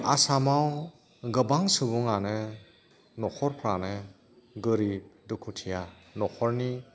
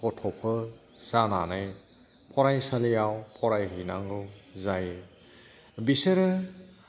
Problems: background sounds at intervals, background conversations at intervals